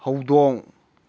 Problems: none marked